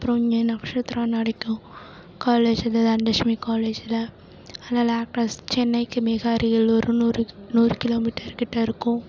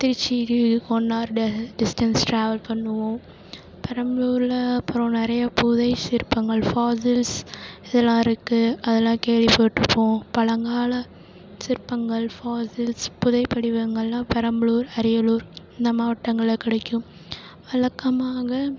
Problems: constant background noise